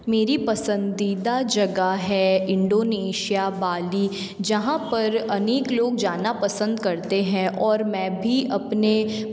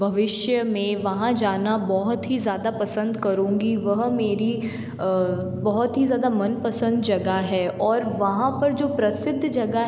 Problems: constant background noise